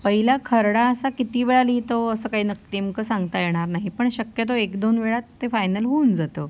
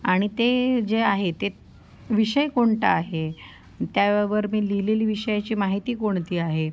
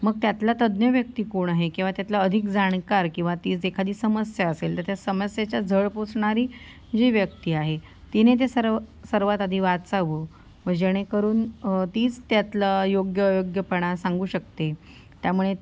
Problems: none marked